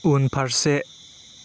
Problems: constant background noise